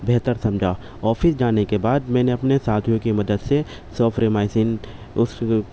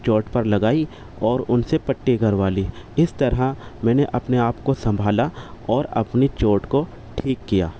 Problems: constant background noise